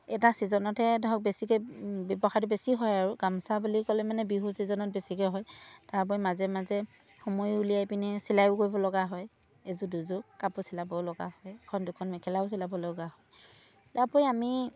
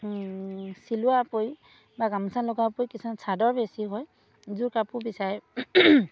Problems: none marked